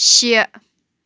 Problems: background sounds at intervals